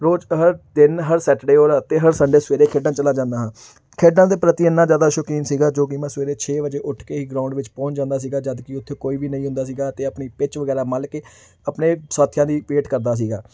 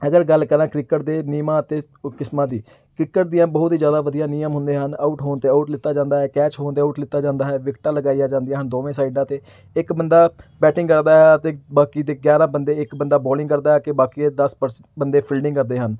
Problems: none marked